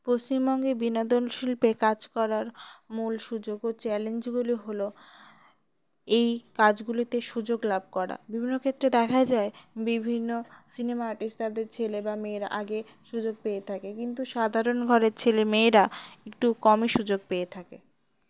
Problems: background sounds at intervals